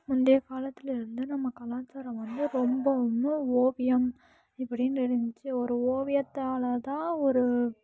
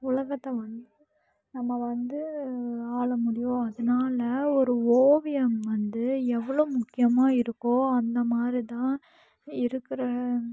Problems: none marked